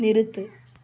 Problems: constant background noise